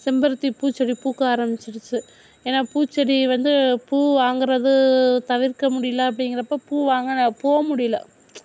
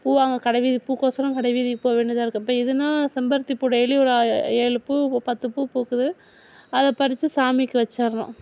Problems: background sounds at intervals